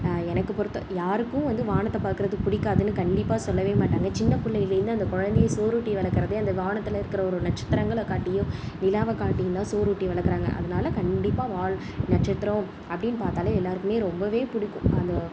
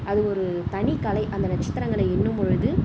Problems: none marked